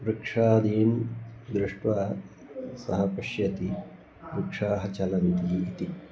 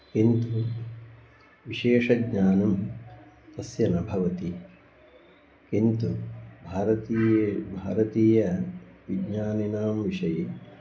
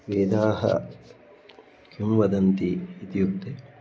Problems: background sounds at intervals